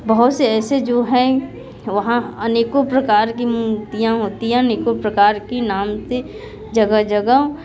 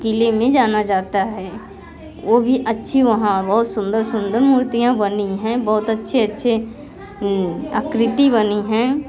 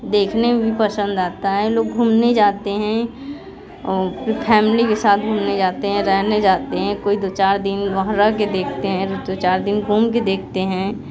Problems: background sounds at intervals, continuous background conversations